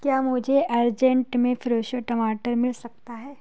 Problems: none marked